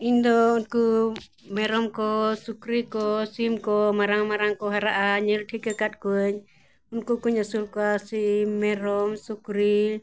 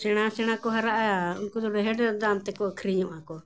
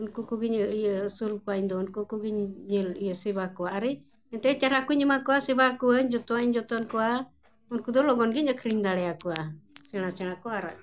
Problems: background sounds at intervals